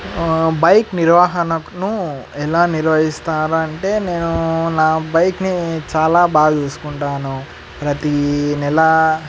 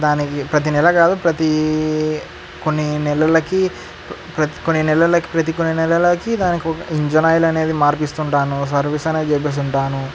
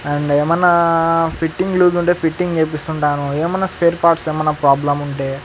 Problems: constant background noise